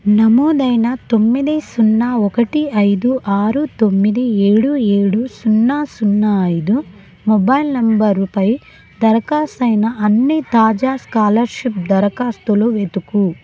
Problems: none marked